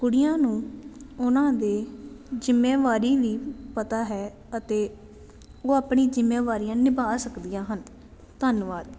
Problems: none marked